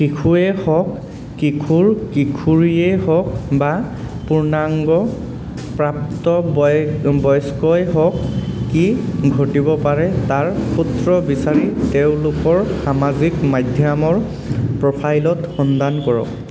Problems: constant background noise